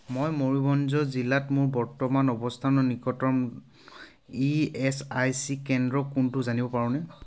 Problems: constant background noise